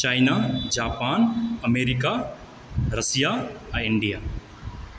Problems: background sounds at intervals